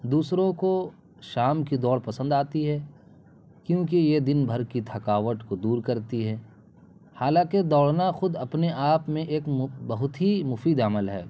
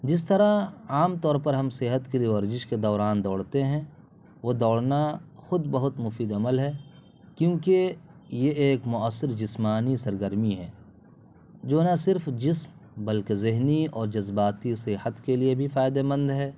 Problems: constant background noise